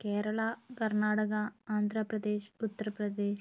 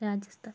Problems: constant background noise